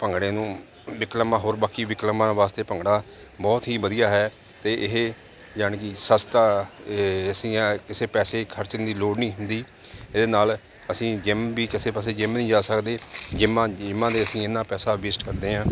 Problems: none marked